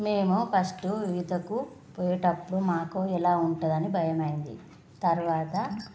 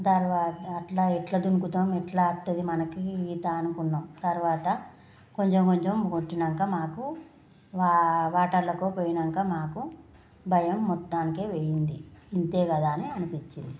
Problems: none marked